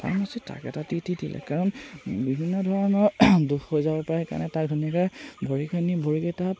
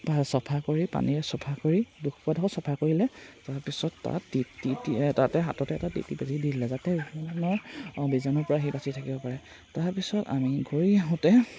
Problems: constant background noise